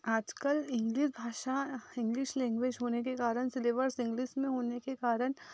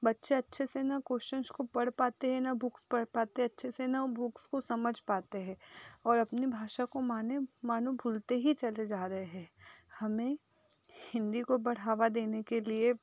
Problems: background sounds at intervals